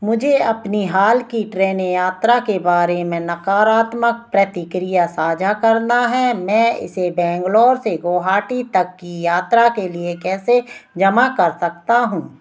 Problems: none marked